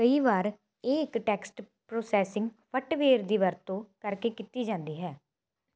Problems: none marked